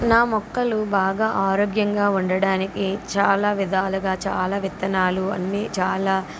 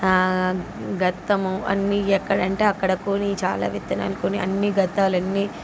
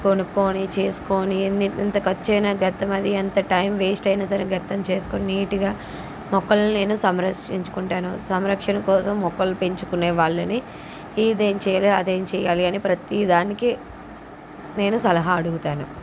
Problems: constant background noise